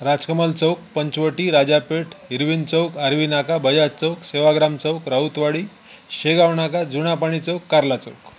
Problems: constant background noise